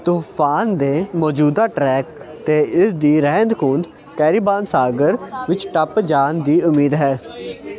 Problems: continuous background conversations